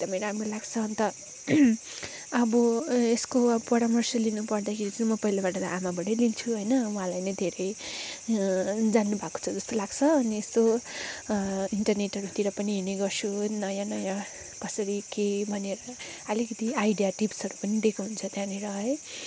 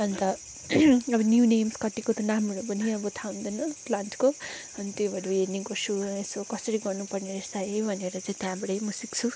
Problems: background sounds at intervals